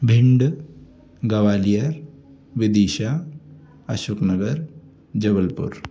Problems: constant background noise, continuous background conversations